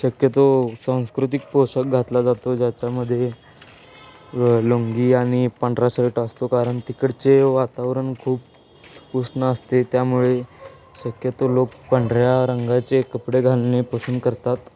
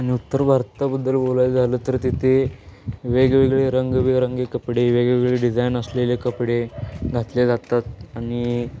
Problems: none marked